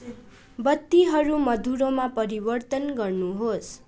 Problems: none marked